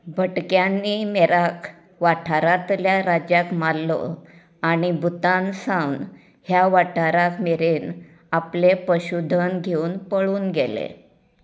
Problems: constant background noise